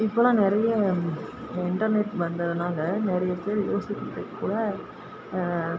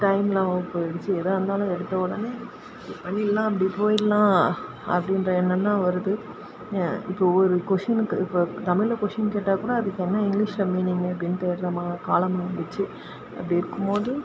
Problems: constant background noise